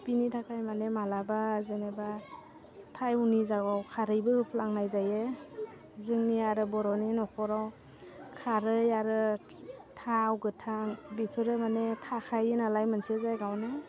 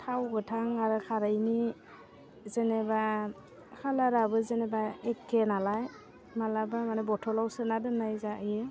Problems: constant background noise